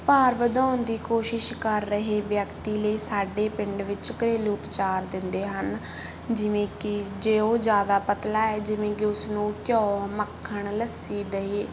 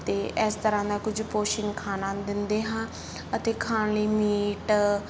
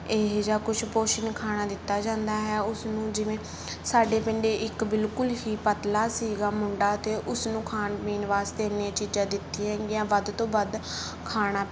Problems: background sounds at intervals